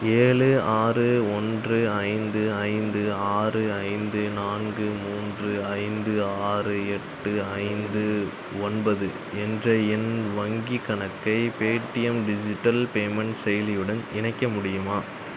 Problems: constant background noise